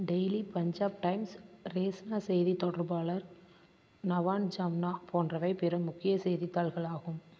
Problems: constant background noise